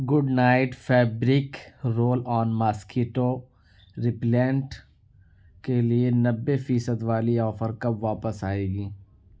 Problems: none marked